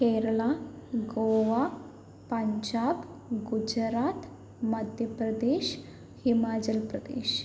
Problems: none marked